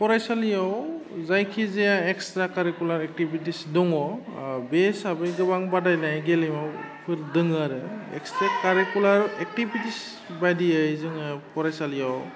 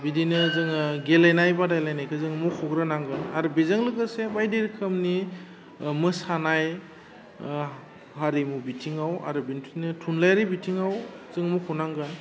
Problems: constant background noise